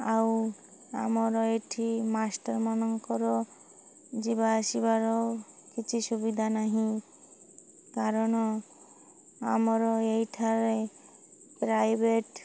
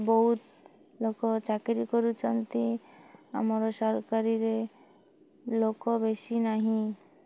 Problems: none marked